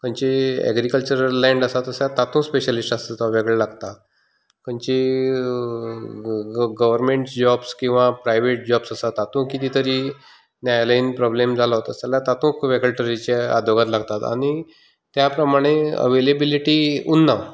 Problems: continuous background conversations